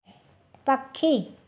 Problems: none marked